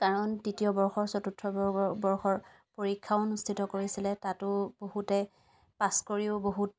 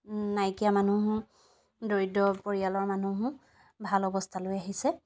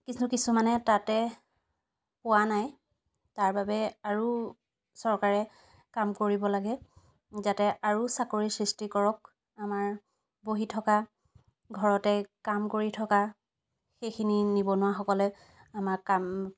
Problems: none marked